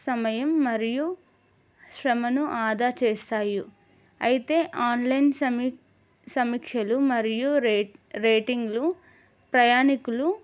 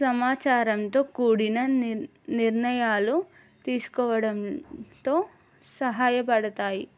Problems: none marked